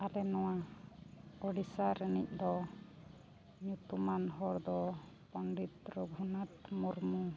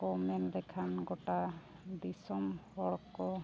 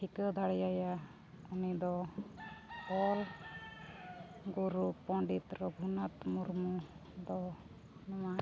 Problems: constant background noise, low volume